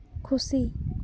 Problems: background sounds at intervals